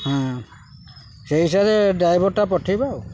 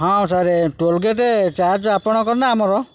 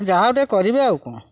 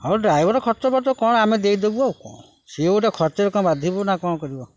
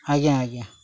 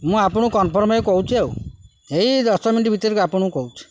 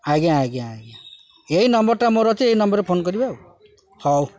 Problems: constant background noise, background conversations at intervals